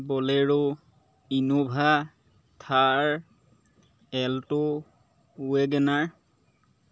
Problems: background sounds at intervals